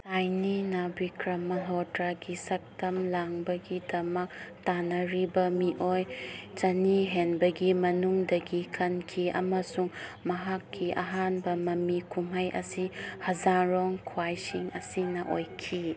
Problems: none marked